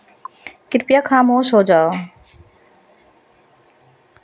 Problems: constant background noise